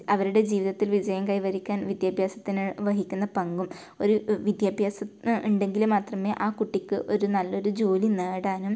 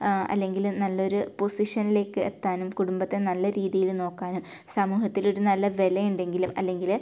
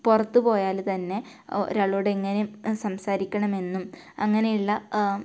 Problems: low volume